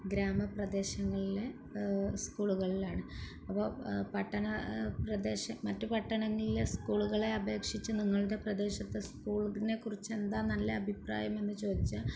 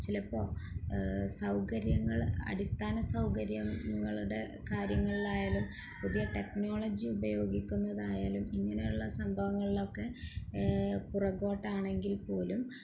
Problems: background sounds at intervals